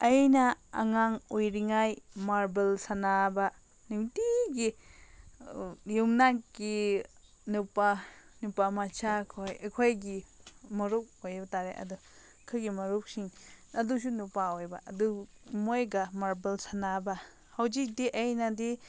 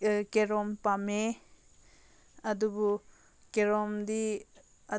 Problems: none marked